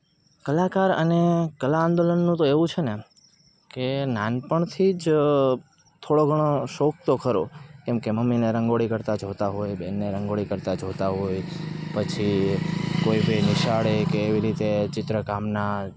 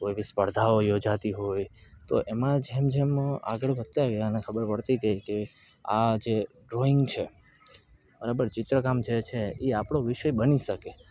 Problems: none marked